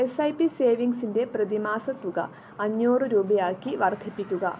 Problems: background sounds at intervals